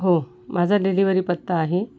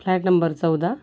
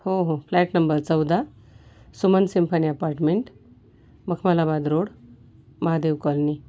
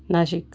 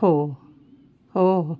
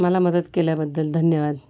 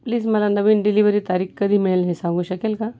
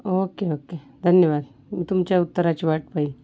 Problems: background sounds at intervals